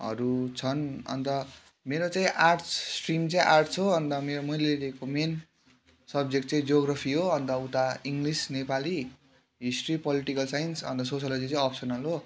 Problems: constant background noise